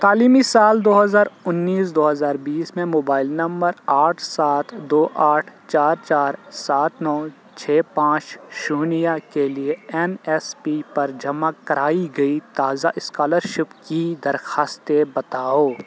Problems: constant background noise